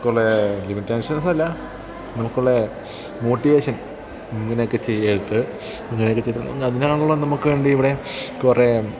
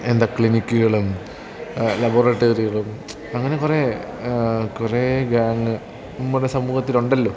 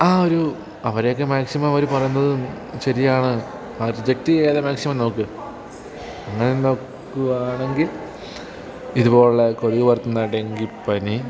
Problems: background sounds at intervals